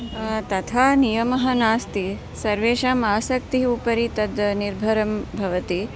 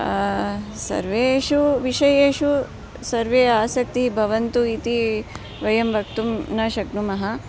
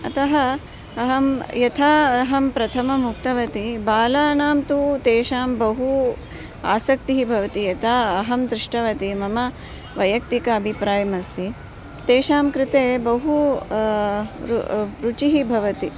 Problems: none marked